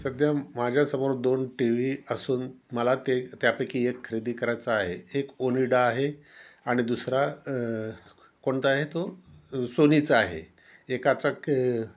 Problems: none marked